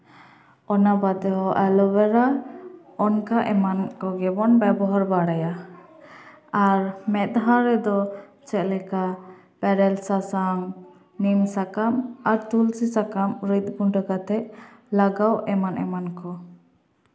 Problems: background conversations at intervals, echo